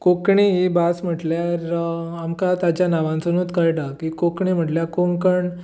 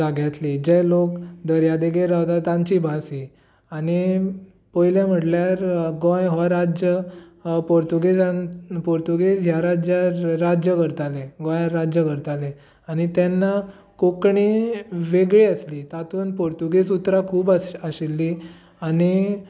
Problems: none marked